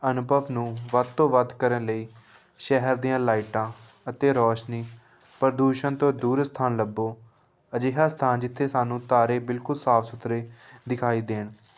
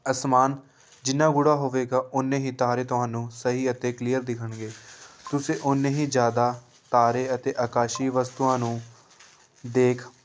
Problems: background sounds at intervals, continuous background conversations